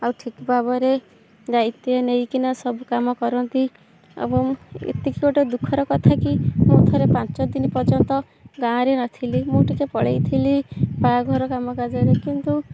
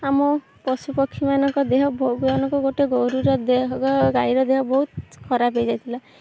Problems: background sounds at intervals